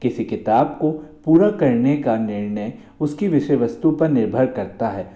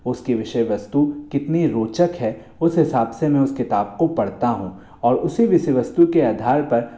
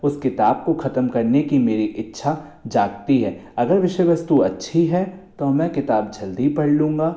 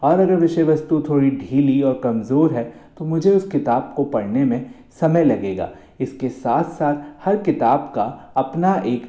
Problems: echo